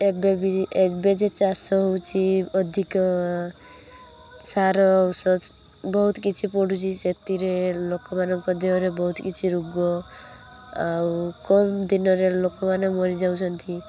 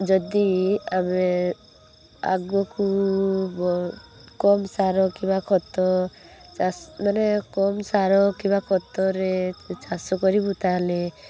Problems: constant background noise